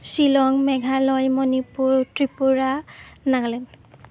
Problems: none marked